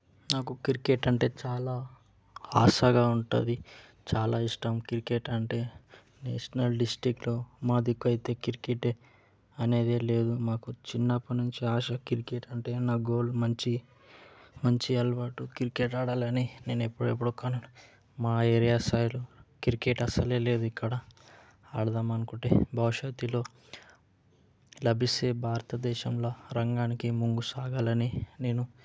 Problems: background conversations at intervals